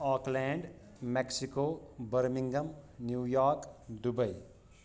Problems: none marked